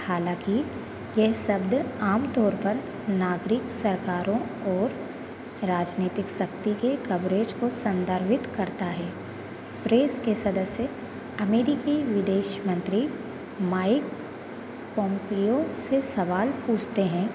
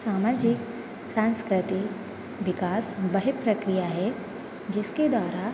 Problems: constant background noise, continuous background conversations